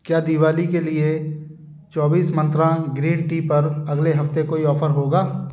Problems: constant background noise